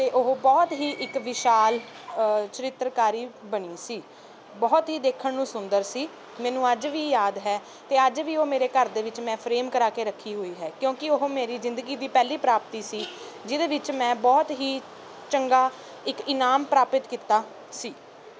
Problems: none marked